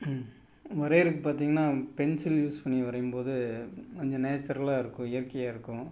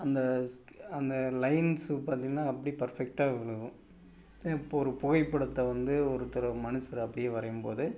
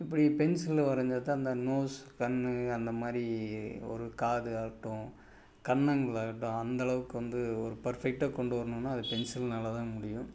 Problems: none marked